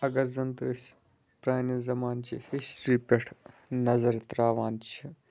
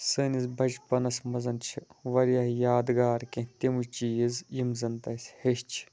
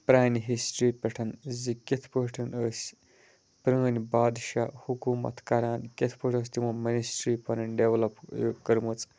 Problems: none marked